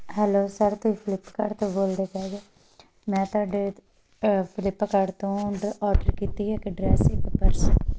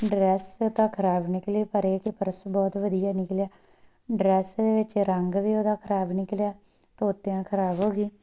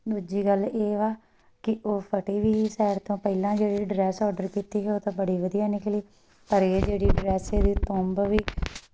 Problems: background sounds at intervals